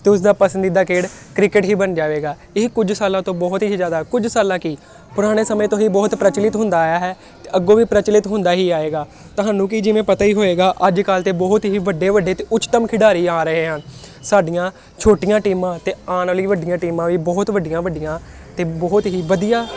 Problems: constant background noise